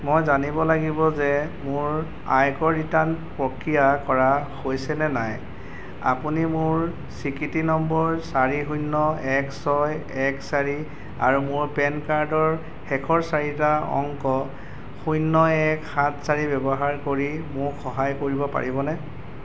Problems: none marked